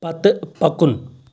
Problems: background sounds at intervals